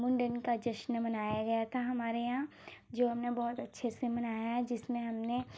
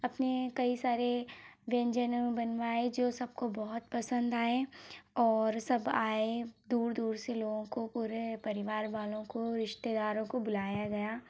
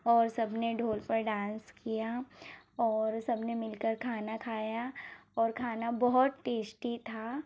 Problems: low volume